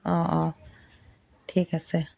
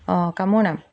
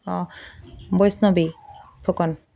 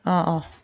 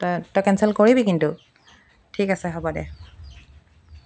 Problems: background sounds at intervals